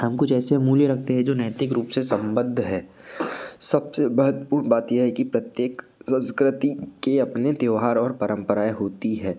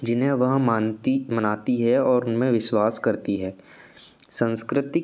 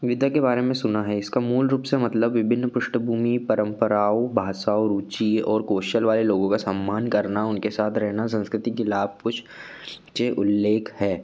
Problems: none marked